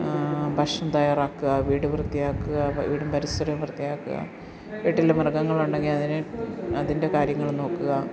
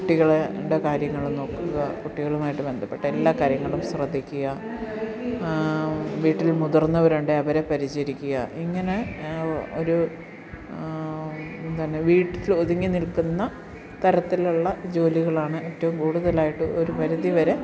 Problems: background sounds at intervals, background conversations at intervals